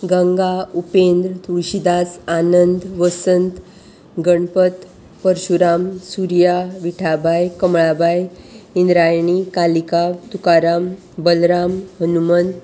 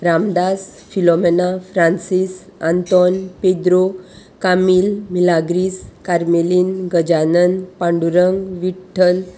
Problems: constant background noise